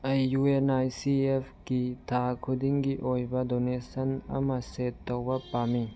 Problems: background sounds at intervals